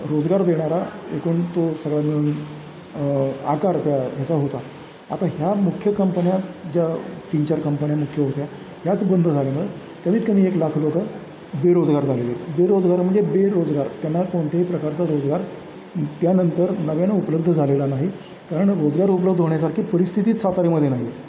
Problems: constant background noise, background conversations at intervals